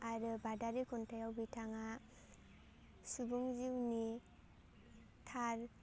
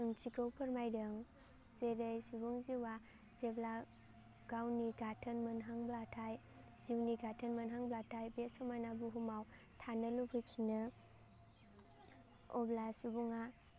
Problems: low volume